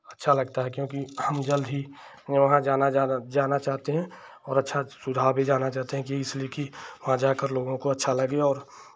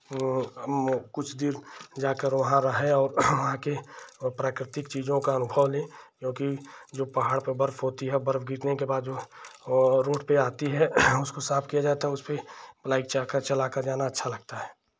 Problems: none marked